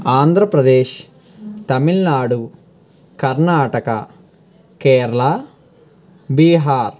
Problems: constant background noise, background conversations at intervals